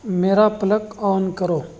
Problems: constant background noise